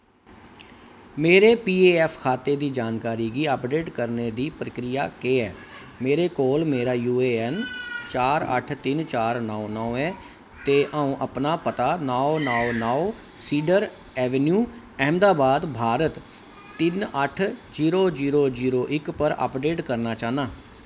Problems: constant background noise